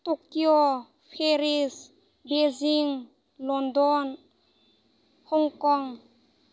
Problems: constant background noise